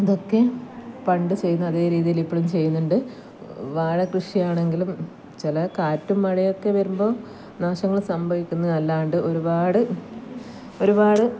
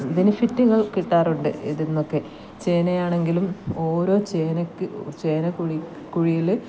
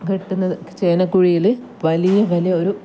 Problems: background sounds at intervals